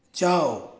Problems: none marked